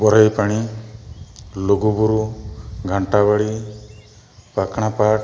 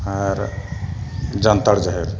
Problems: background sounds at intervals